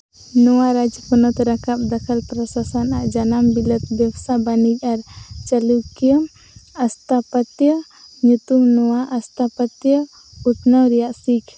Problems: constant background noise